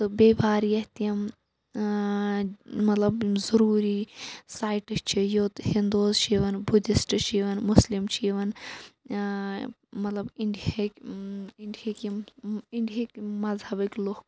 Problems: none marked